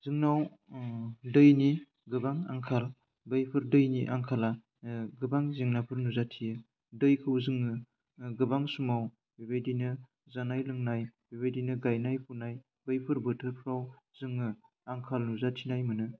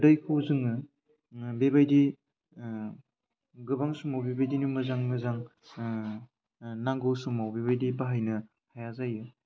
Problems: low volume